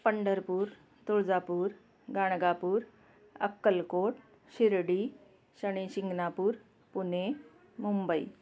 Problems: background sounds at intervals